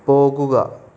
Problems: none marked